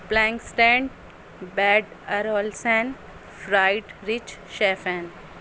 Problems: constant background noise